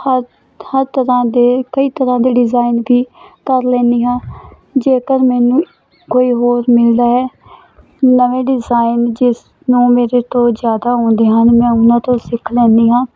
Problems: constant background noise